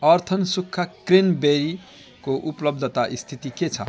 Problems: background sounds at intervals